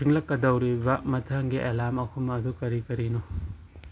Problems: none marked